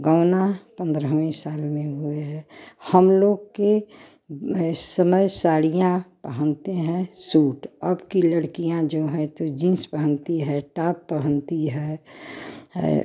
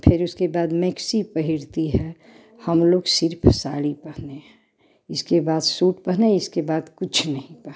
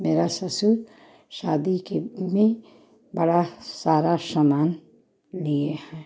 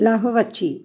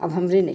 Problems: background sounds at intervals